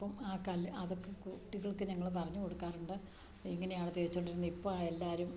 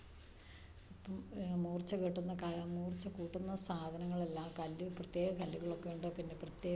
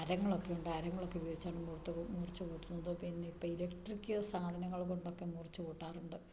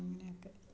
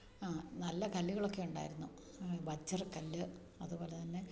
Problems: low volume